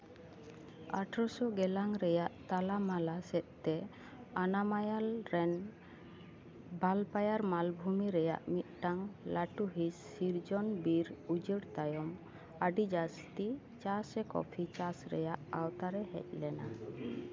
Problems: background conversations at intervals